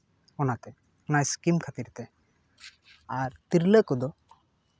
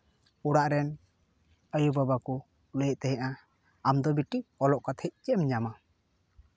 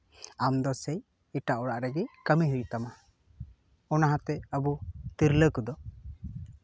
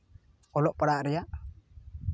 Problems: background sounds at intervals